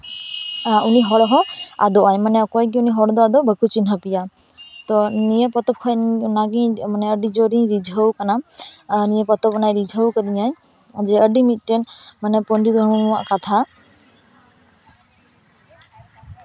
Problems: none marked